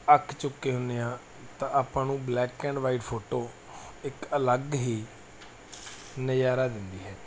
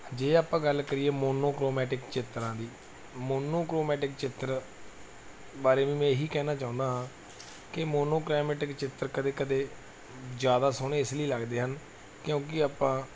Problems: none marked